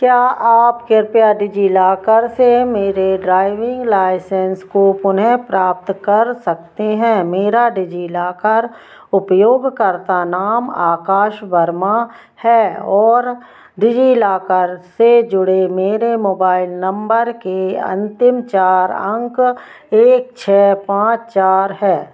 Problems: none marked